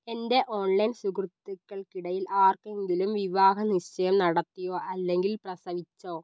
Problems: none marked